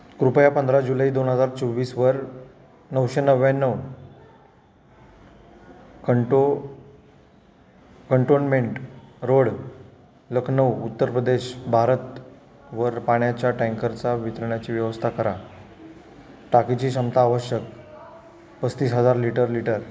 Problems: constant background noise, continuous background conversations